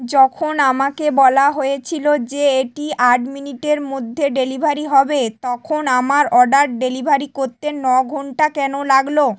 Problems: none marked